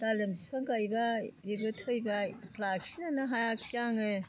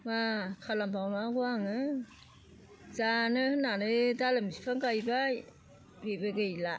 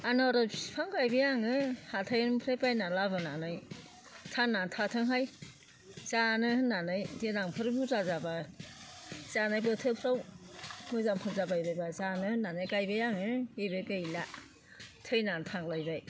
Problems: constant background noise